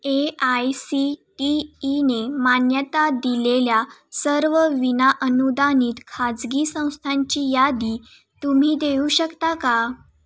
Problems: none marked